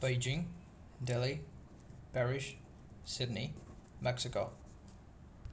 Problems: constant background noise